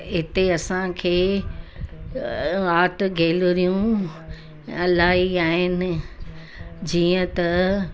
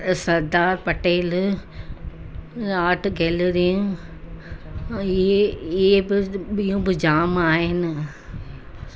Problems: constant background noise, continuous background conversations